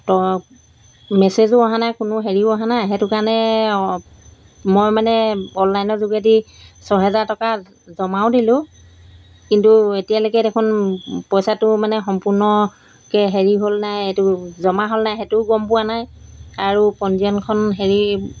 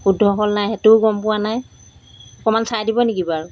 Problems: background sounds at intervals